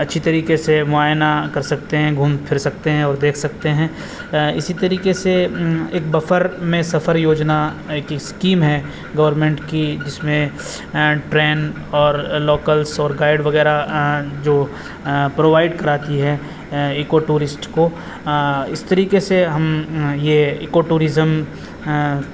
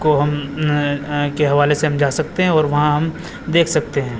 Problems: constant background noise